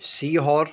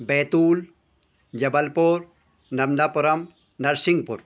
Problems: constant background noise